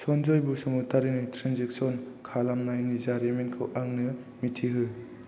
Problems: constant background noise